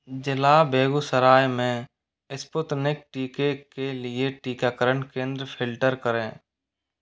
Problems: none marked